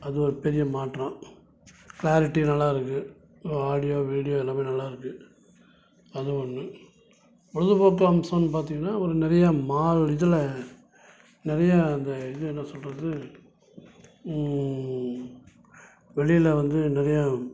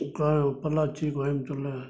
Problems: background sounds at intervals